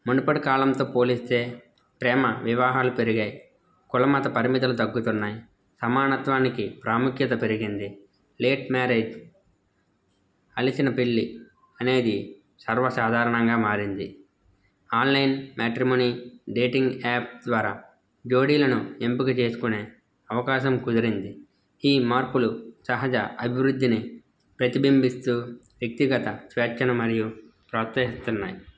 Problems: none marked